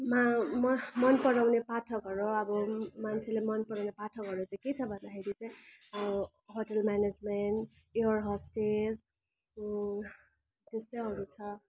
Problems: constant background noise